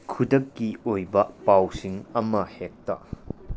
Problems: low volume